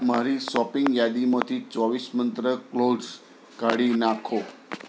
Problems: background conversations at intervals